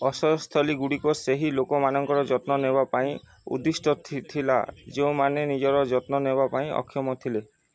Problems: none marked